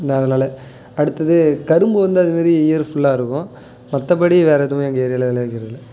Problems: none marked